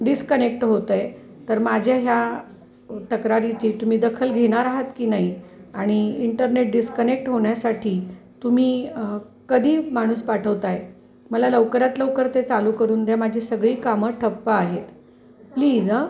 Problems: none marked